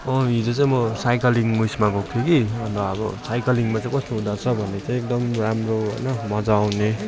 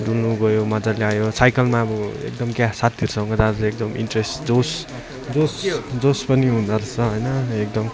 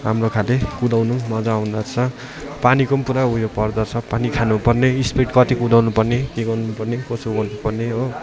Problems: constant background noise, continuous background conversations